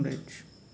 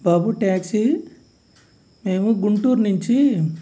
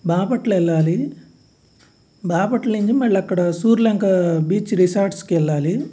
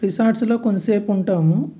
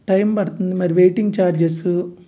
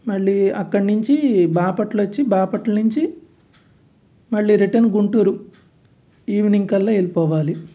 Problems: none marked